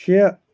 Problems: background sounds at intervals